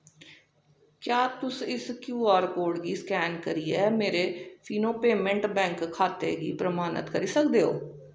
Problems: echo